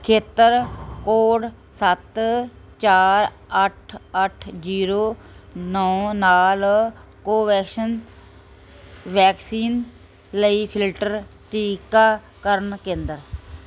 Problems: none marked